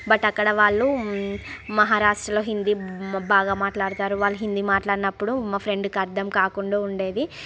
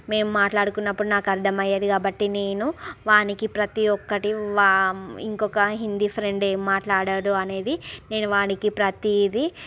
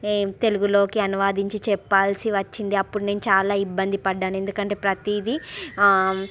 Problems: background sounds at intervals, background conversations at intervals